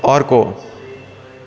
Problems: none marked